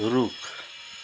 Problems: constant background noise